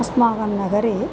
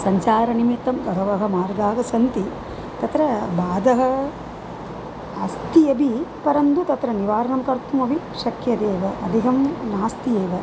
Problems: constant background noise